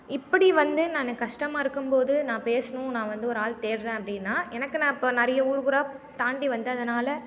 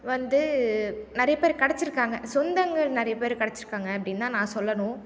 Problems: none marked